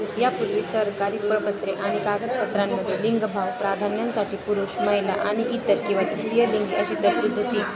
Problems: constant background noise, continuous background conversations